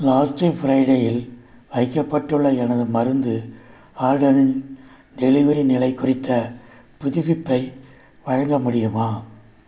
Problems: none marked